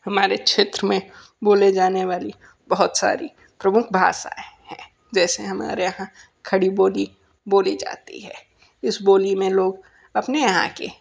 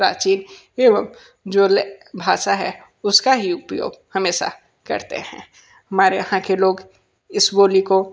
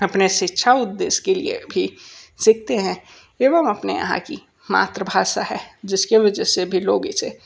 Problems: background sounds at intervals